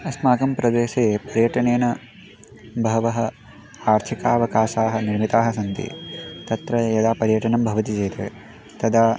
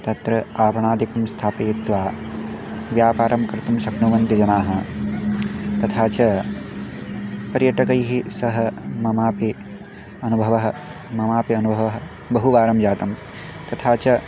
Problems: background sounds at intervals